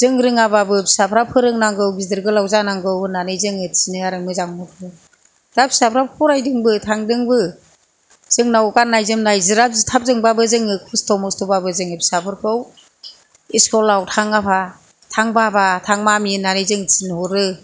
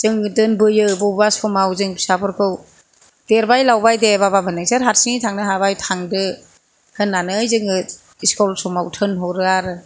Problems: none marked